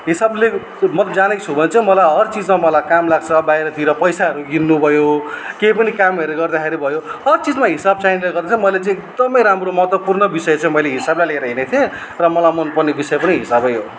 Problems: none marked